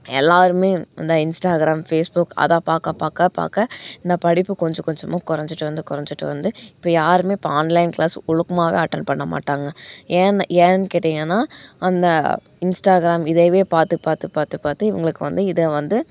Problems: background sounds at intervals